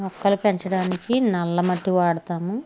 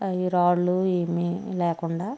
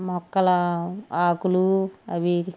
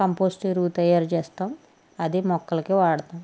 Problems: none marked